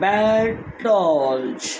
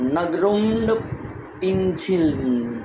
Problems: constant background noise